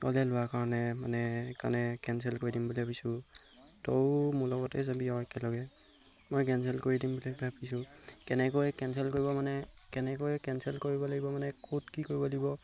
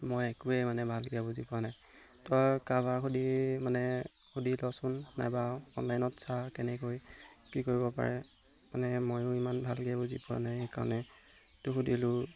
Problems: background sounds at intervals